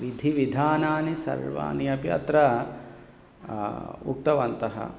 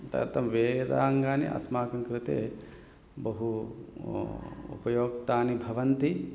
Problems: background sounds at intervals